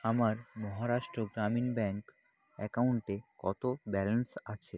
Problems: background conversations at intervals